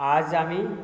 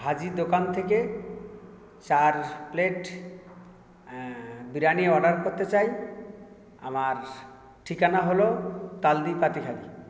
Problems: constant background noise